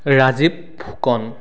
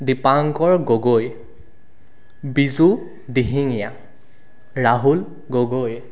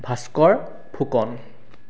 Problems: none marked